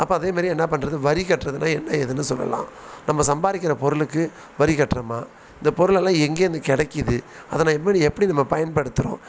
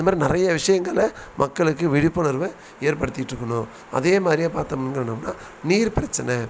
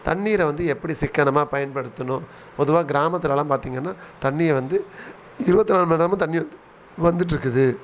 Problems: none marked